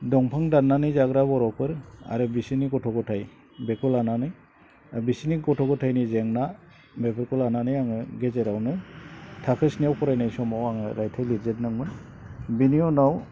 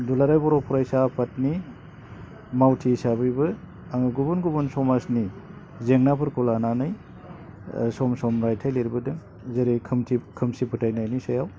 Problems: low volume